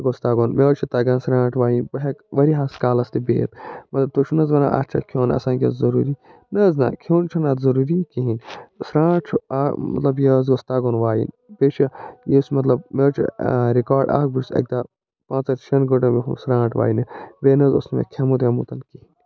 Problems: none marked